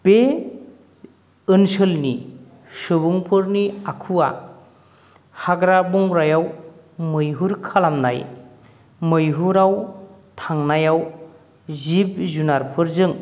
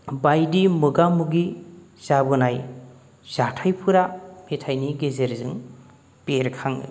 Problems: none marked